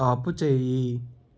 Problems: constant background noise